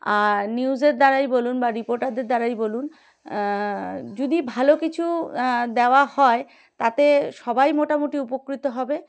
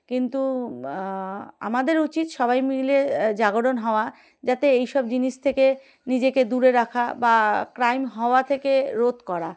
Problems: none marked